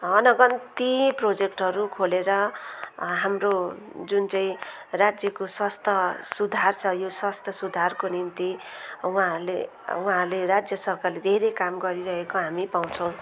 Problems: continuous background conversations